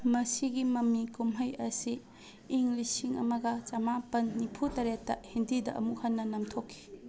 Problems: none marked